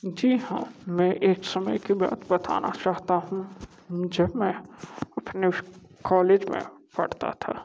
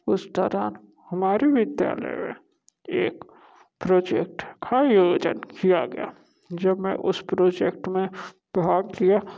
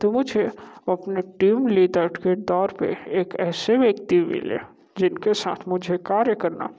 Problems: none marked